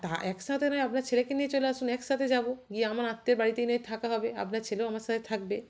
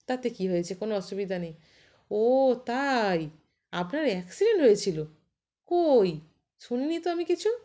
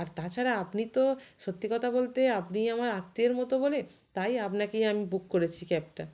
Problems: constant background noise